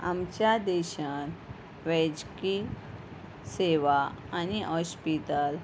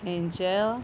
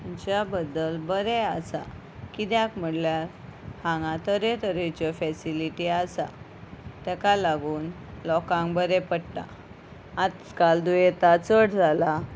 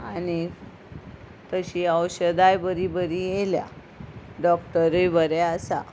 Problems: none marked